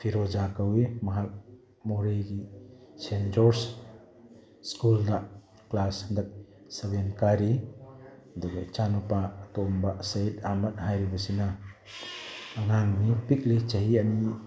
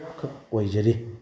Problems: background conversations at intervals